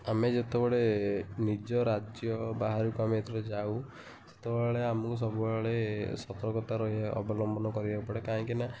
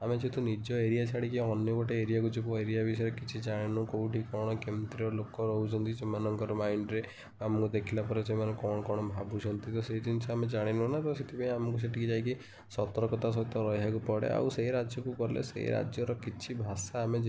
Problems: constant background noise, continuous background conversations